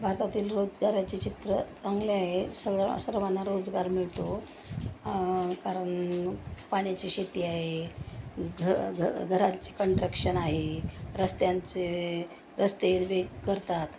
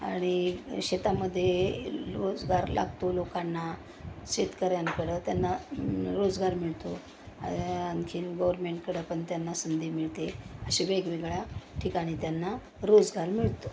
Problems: none marked